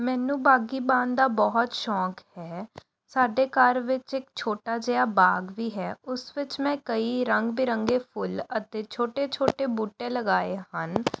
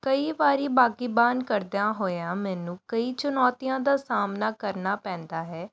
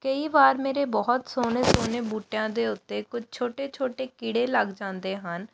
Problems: background sounds at intervals